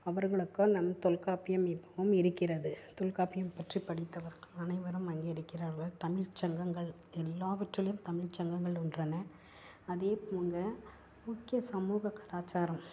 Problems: constant background noise, low volume